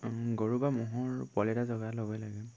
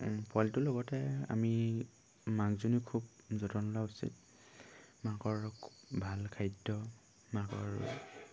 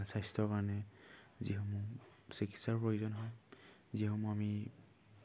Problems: low volume